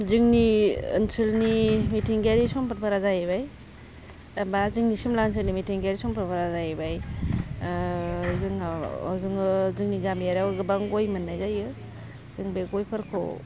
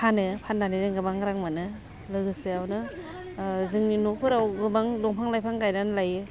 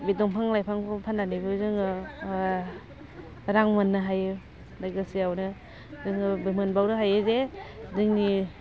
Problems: constant background noise